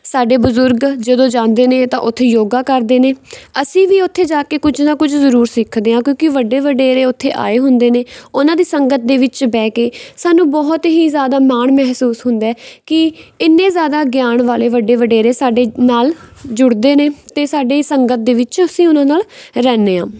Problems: none marked